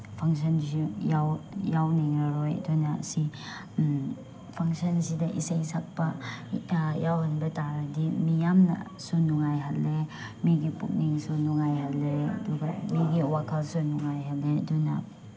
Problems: none marked